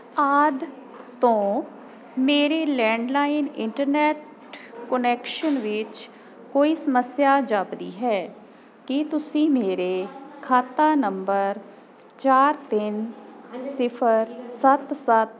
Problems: constant background noise